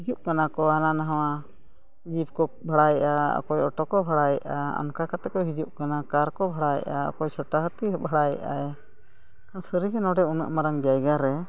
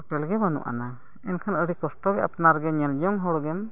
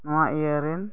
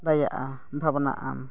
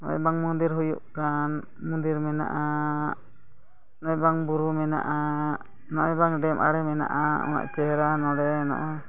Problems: none marked